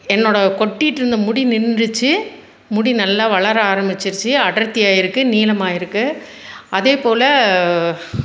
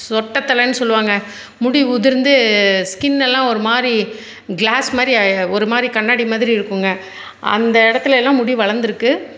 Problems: none marked